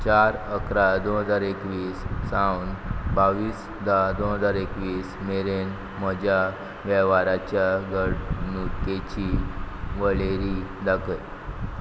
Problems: none marked